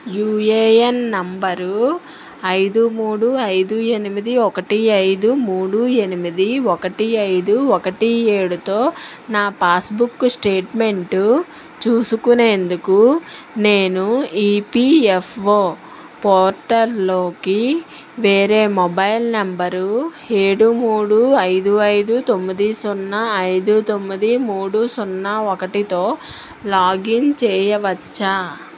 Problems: constant background noise